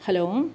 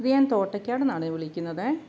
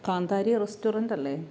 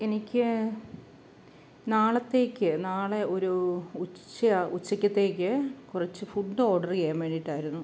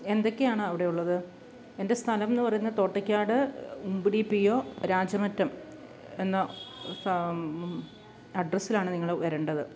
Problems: none marked